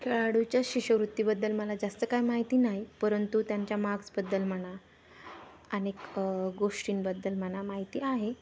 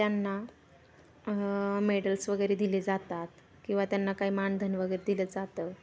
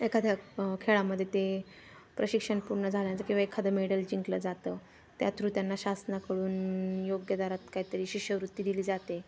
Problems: constant background noise